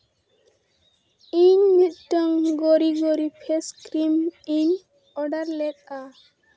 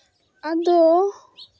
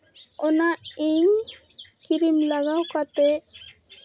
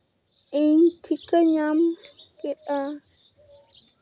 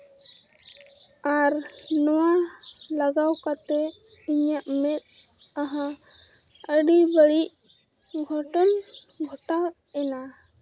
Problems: background sounds at intervals